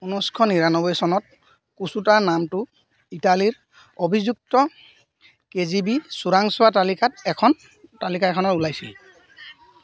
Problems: background sounds at intervals